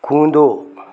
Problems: constant background noise